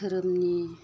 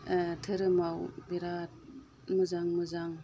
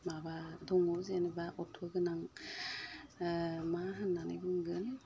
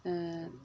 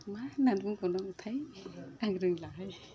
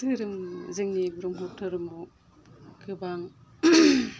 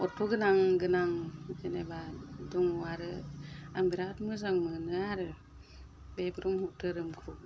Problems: constant background noise